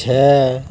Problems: constant background noise